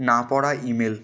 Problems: continuous background conversations